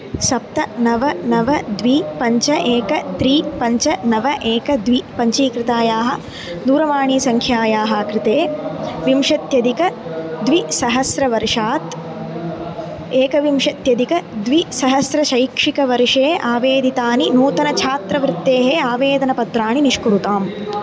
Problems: constant background noise, continuous background conversations